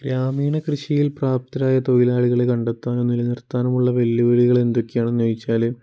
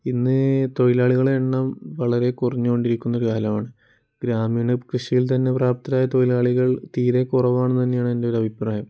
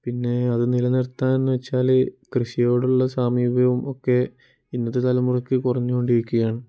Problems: none marked